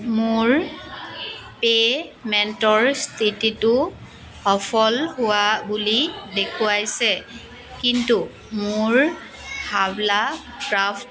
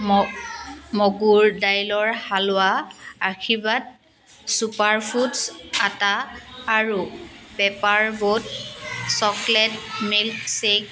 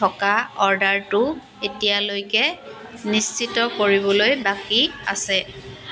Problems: constant background noise, background conversations at intervals